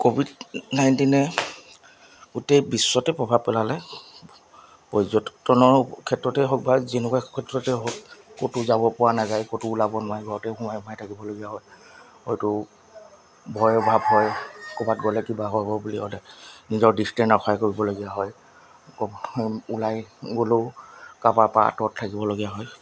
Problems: background sounds at intervals